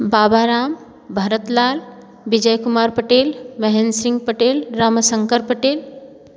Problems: none marked